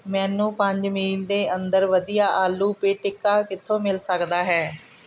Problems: none marked